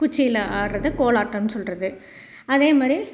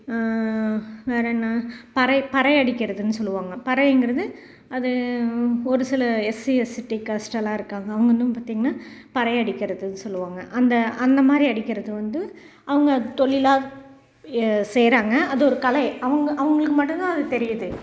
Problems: background sounds at intervals